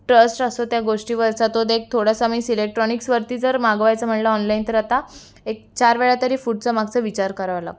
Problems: constant background noise, background conversations at intervals